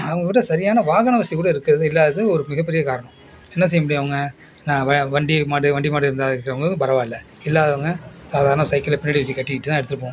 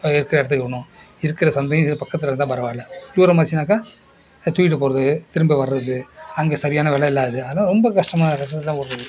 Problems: none marked